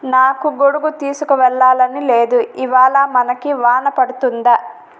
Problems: constant background noise